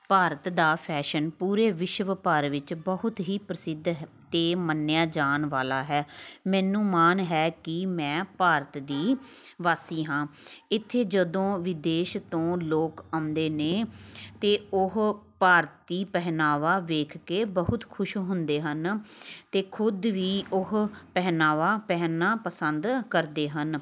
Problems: continuous background conversations